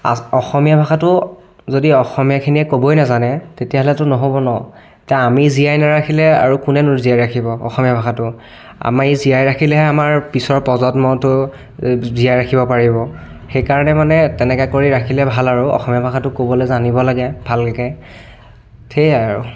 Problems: continuous background conversations